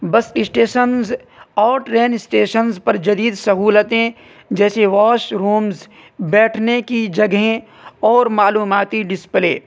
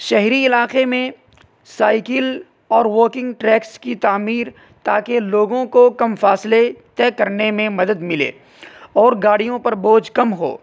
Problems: constant background noise